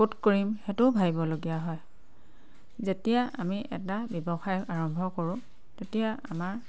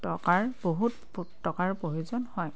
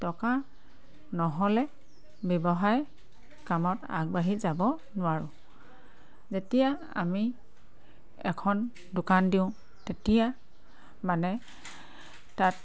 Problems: constant background noise